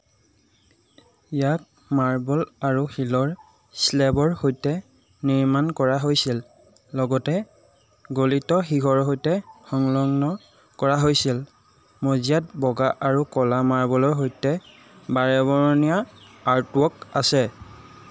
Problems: background sounds at intervals